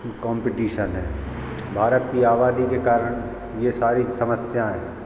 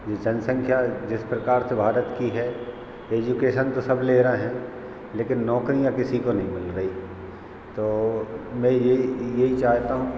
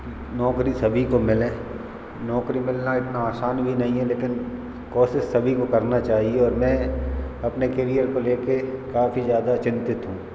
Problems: constant background noise